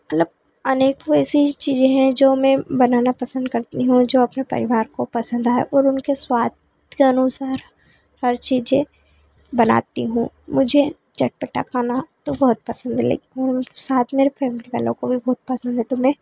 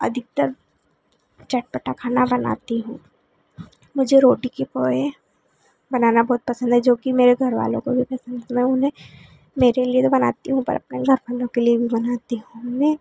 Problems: constant background noise